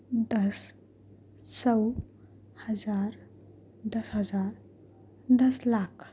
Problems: none marked